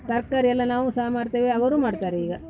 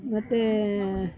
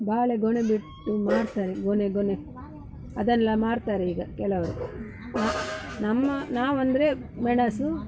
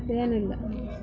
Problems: background sounds at intervals, background conversations at intervals